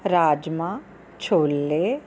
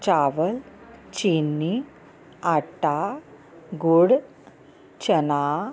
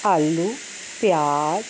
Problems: none marked